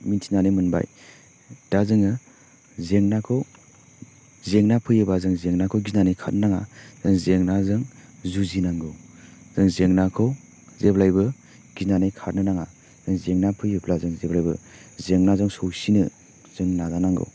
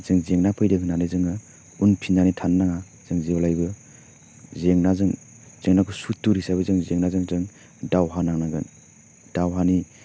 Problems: constant background noise